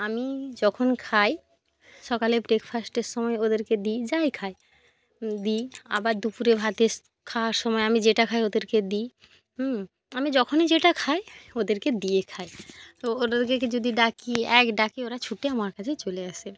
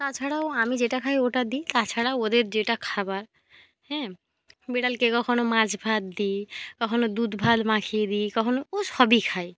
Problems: none marked